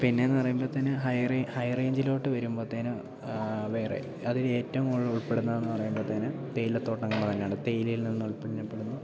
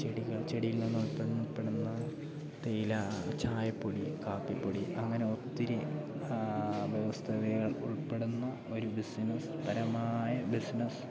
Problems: constant background noise, low volume